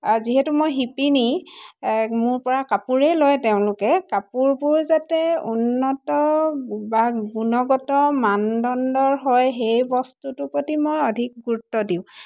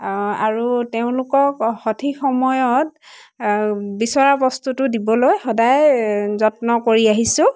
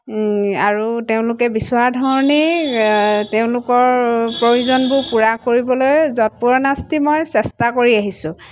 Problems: constant background noise, background conversations at intervals